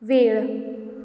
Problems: none marked